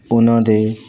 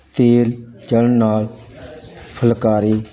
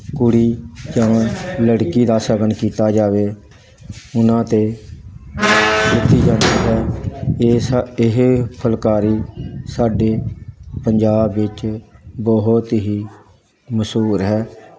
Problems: constant background noise, background conversations at intervals